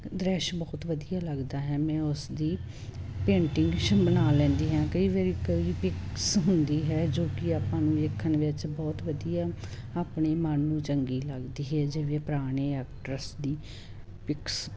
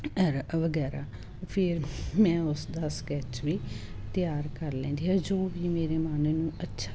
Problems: constant background noise